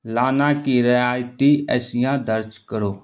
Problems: none marked